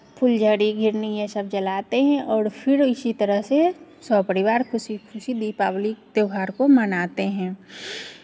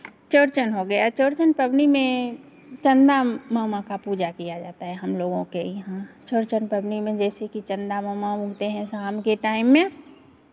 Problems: constant background noise